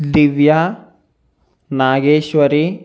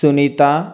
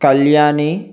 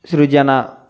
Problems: constant background noise